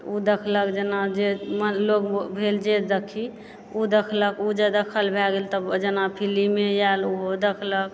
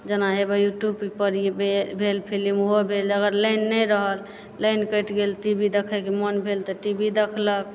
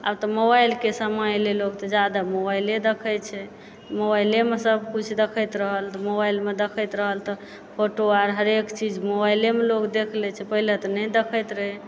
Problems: background sounds at intervals